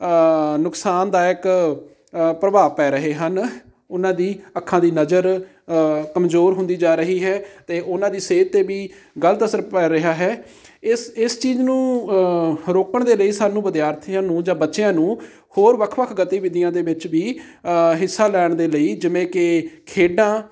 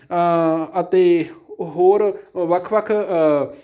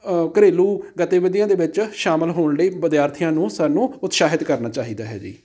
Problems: none marked